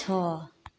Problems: constant background noise